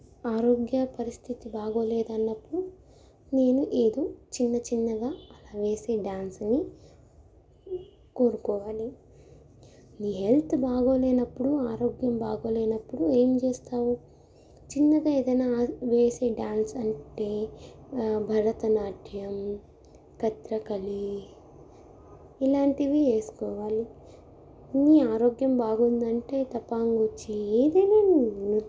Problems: none marked